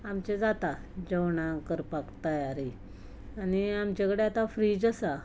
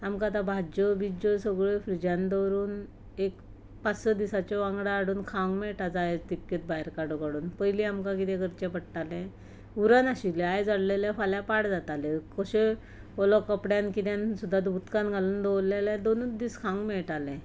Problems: background sounds at intervals